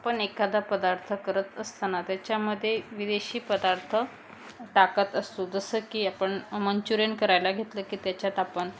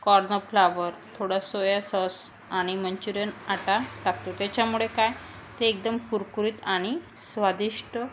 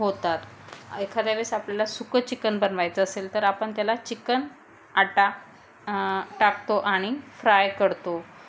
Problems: none marked